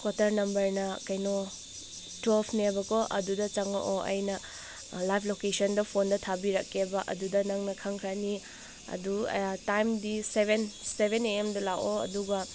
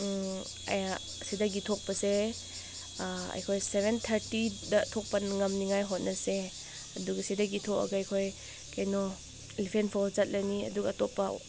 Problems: constant background noise